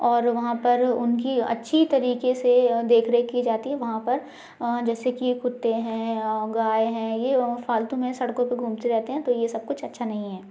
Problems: background sounds at intervals